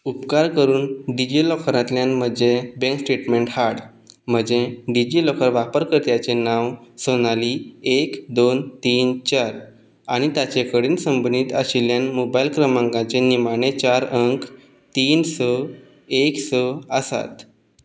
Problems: background sounds at intervals